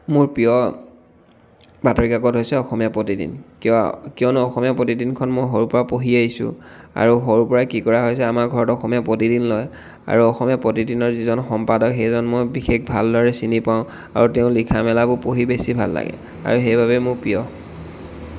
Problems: none marked